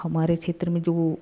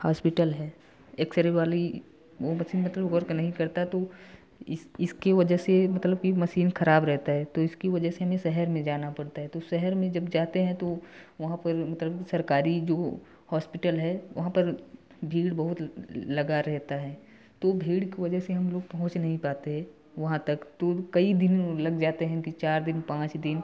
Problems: background sounds at intervals, continuous background conversations